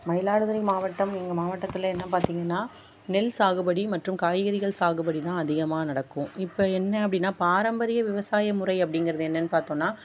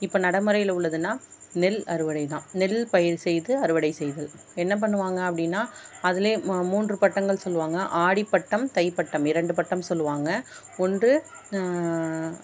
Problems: none marked